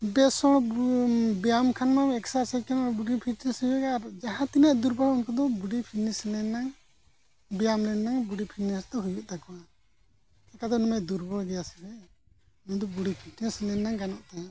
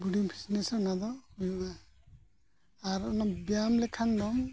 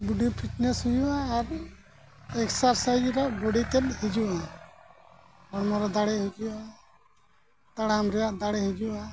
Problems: none marked